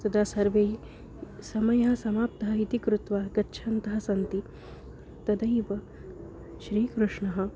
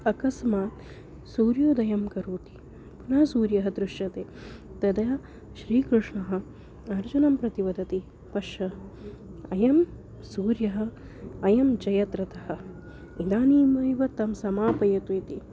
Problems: none marked